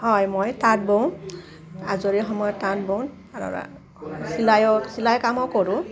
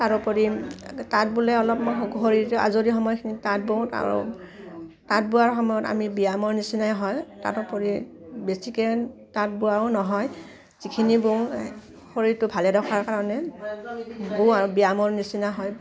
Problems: constant background noise